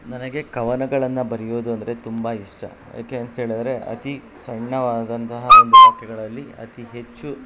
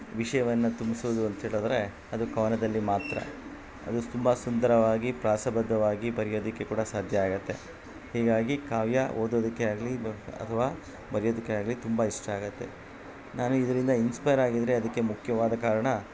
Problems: background sounds at intervals